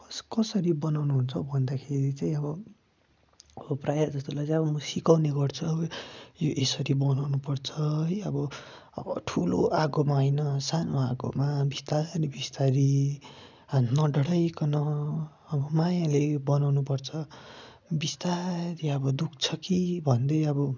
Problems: constant background noise